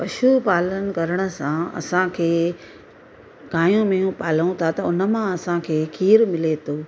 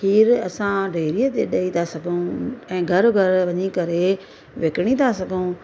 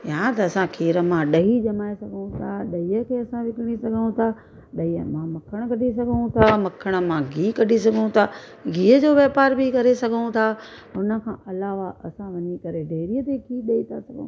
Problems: constant background noise